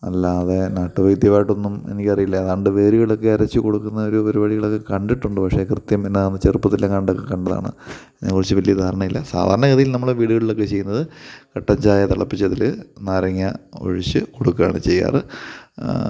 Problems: none marked